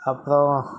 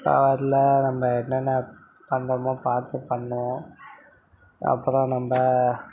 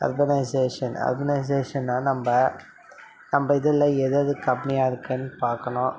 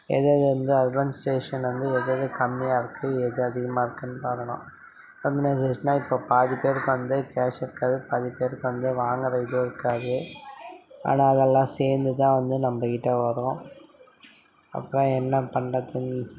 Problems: none marked